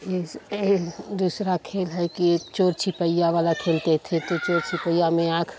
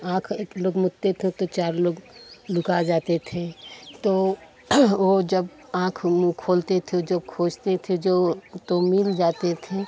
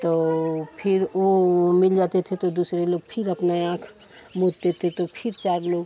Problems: none marked